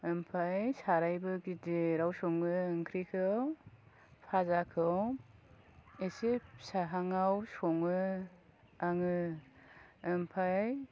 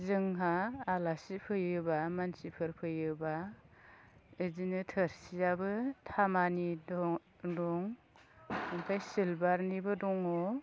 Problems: low volume